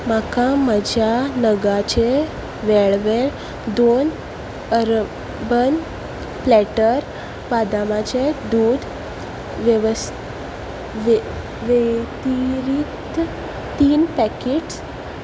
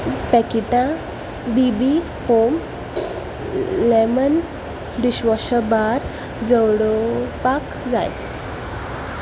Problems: background sounds at intervals